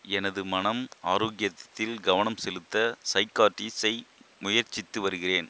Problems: constant background noise